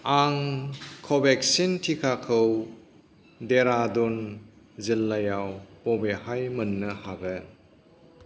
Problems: constant background noise